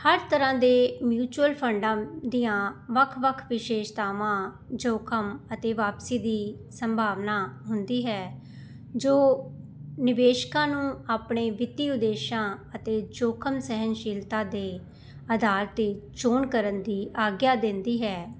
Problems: none marked